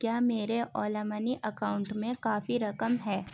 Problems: constant background noise, low volume